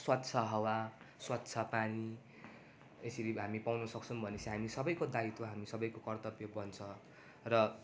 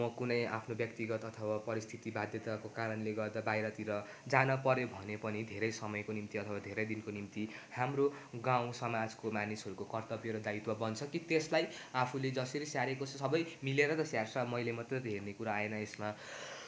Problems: constant background noise